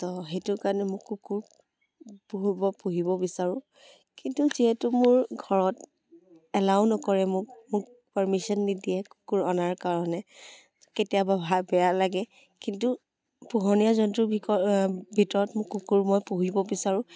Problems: background sounds at intervals